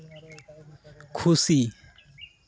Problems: background sounds at intervals, background conversations at intervals